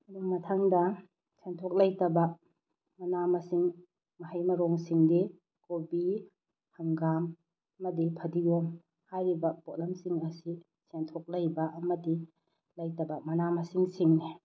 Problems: low volume